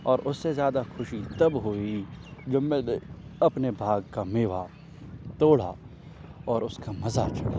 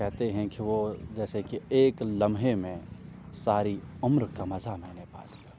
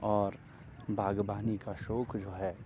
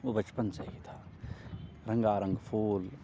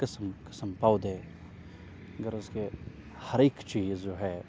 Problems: constant background noise